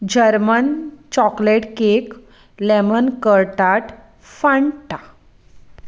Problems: background sounds at intervals